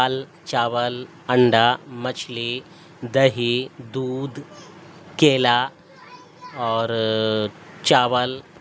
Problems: constant background noise